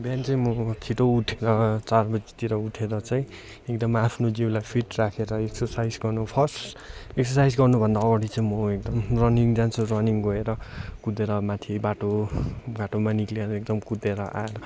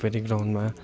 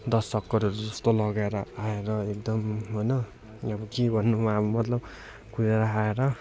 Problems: none marked